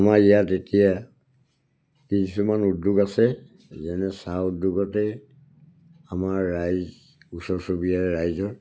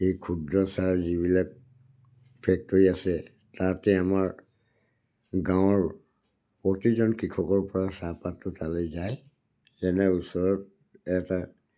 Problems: none marked